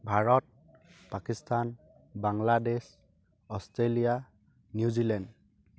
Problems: background sounds at intervals